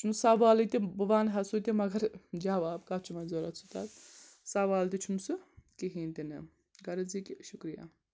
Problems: constant background noise